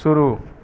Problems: constant background noise